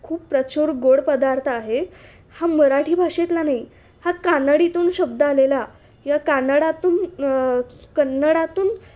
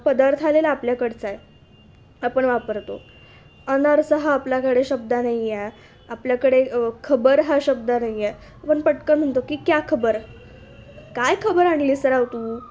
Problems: constant background noise, background conversations at intervals